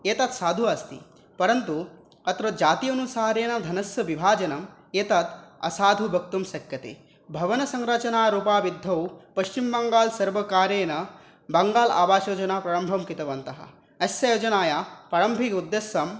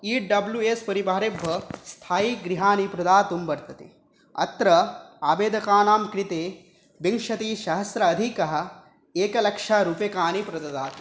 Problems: background sounds at intervals